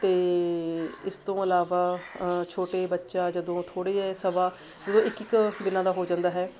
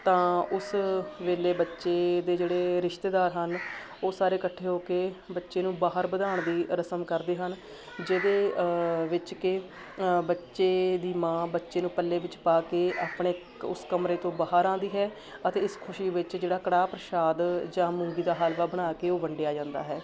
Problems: constant background noise, continuous background conversations